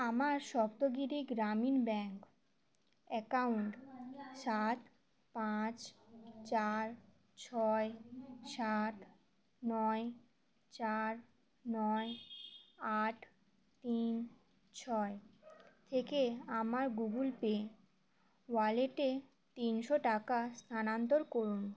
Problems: none marked